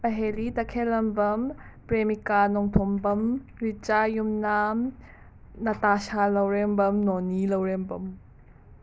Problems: background sounds at intervals